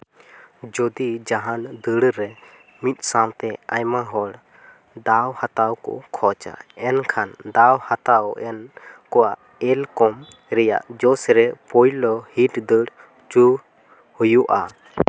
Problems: background sounds at intervals, background conversations at intervals